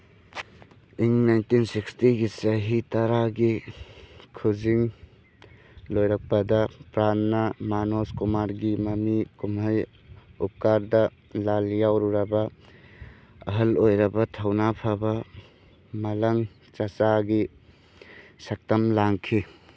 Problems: none marked